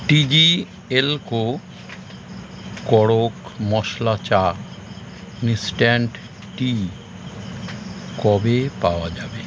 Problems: constant background noise